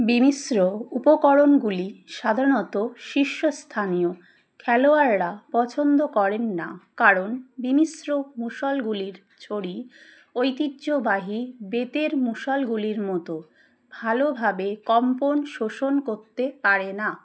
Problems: background sounds at intervals